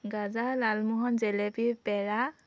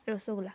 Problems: none marked